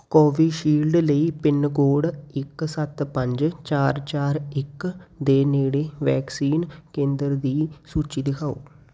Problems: none marked